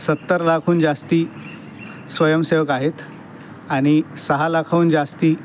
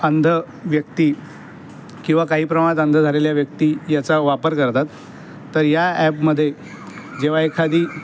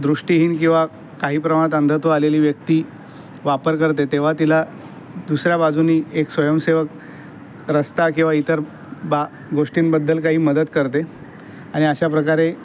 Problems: none marked